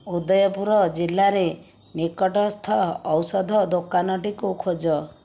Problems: none marked